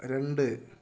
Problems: none marked